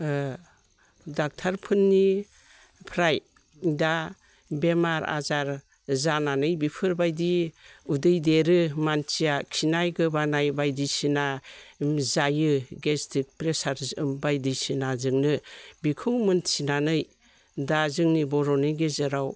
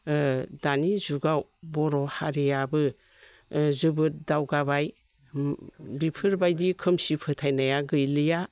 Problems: none marked